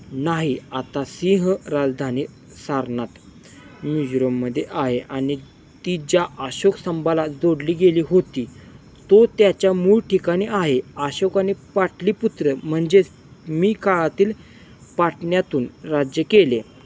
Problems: constant background noise